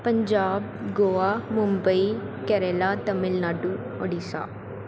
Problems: constant background noise